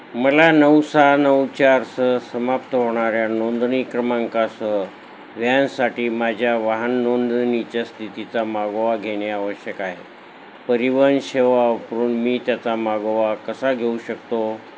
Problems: constant background noise